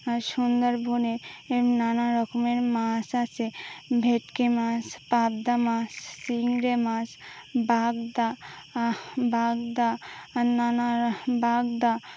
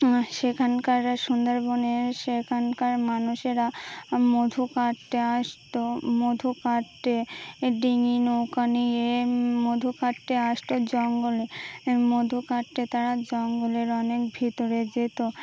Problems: constant background noise